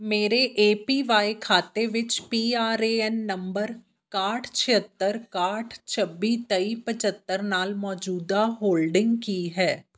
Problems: background conversations at intervals